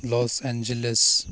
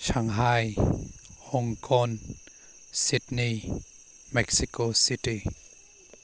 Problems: none marked